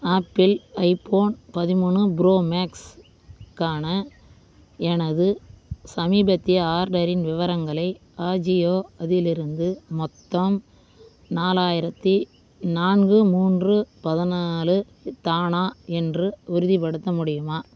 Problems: constant background noise